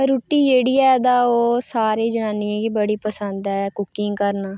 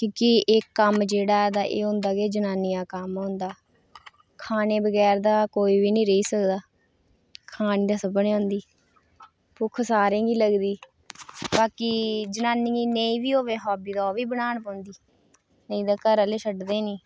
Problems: none marked